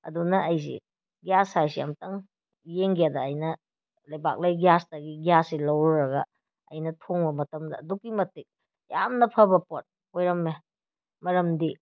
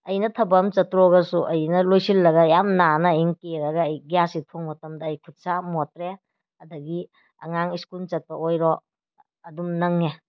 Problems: none marked